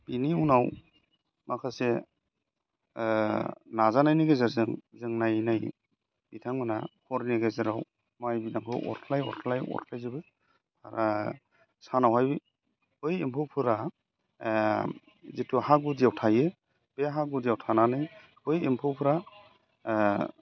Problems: constant background noise